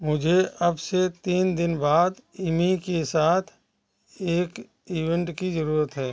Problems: none marked